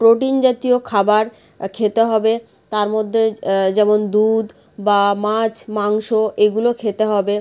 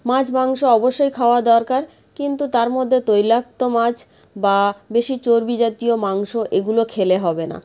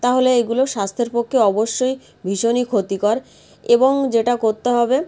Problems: none marked